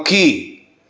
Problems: none marked